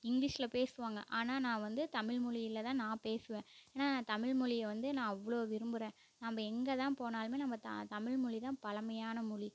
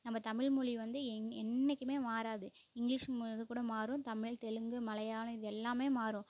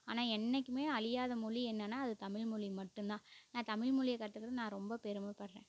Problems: constant background noise, low volume